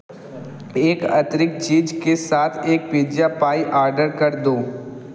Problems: none marked